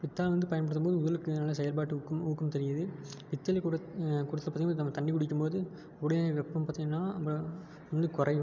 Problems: none marked